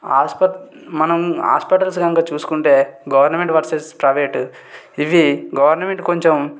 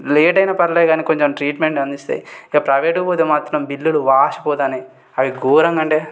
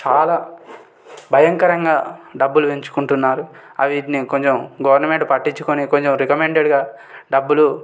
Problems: none marked